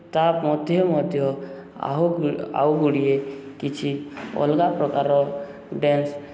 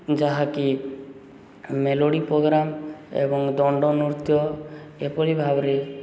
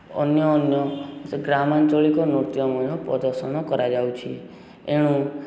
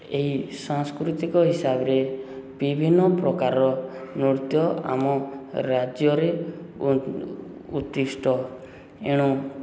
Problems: none marked